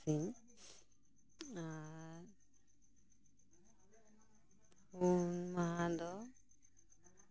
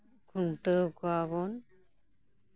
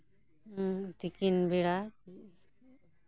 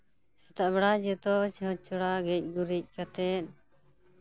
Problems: low volume